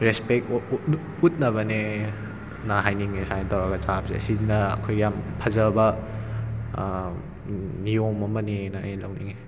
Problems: background sounds at intervals